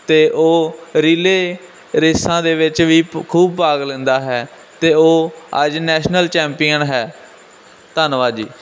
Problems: none marked